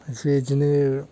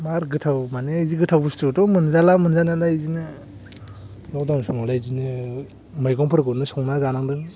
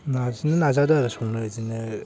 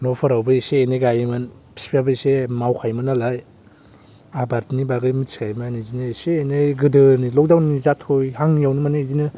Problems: low volume